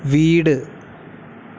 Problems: constant background noise